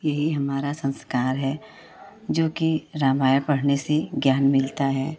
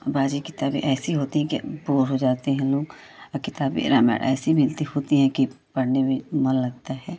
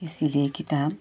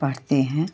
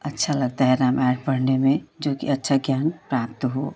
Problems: none marked